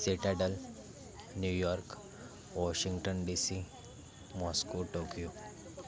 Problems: background sounds at intervals, continuous background conversations